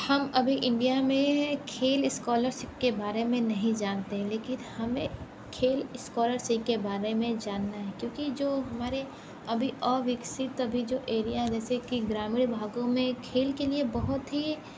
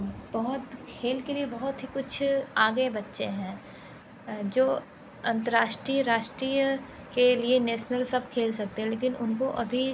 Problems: background sounds at intervals